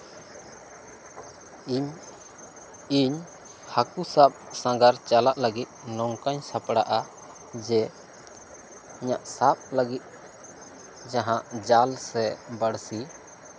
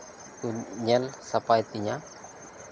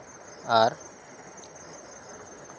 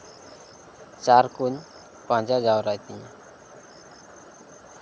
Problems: background sounds at intervals